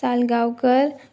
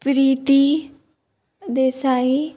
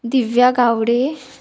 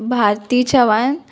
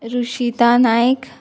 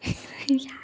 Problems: background sounds at intervals